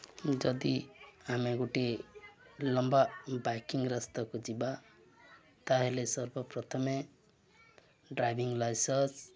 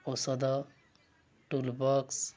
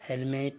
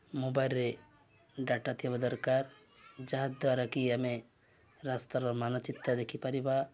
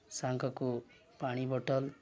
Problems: none marked